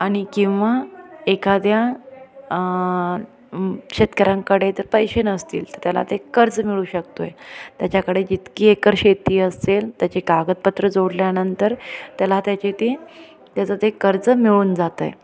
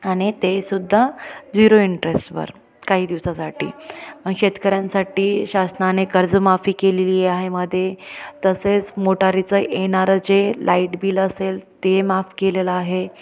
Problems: constant background noise, background conversations at intervals